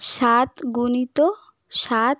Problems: background sounds at intervals